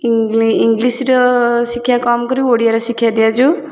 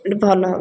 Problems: constant background noise, continuous background conversations